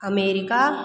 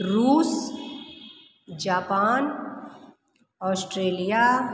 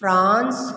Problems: background sounds at intervals